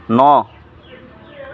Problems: none marked